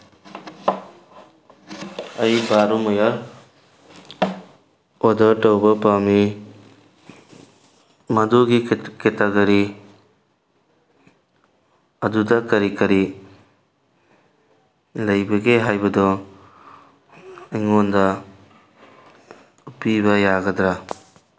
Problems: constant background noise